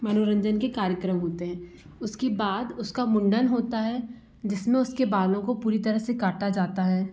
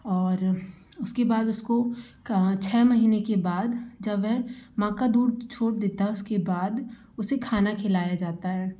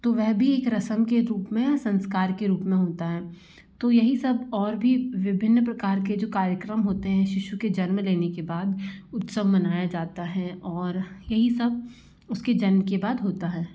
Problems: constant background noise